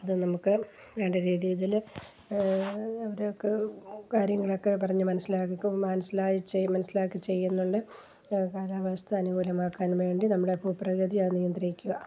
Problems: none marked